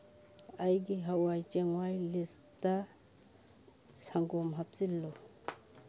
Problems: none marked